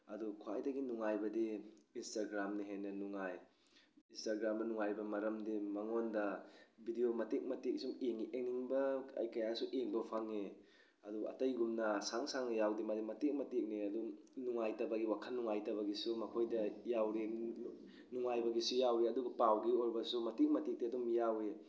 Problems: background sounds at intervals